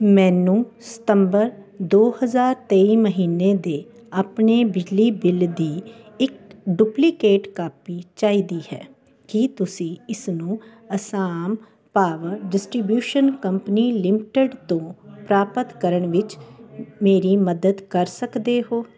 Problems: none marked